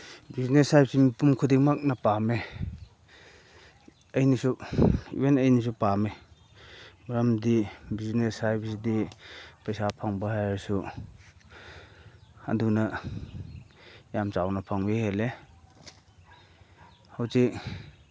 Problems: none marked